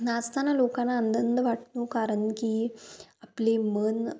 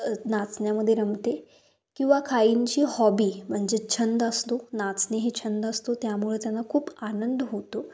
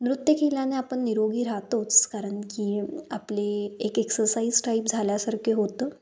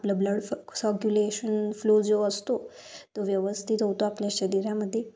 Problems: background sounds at intervals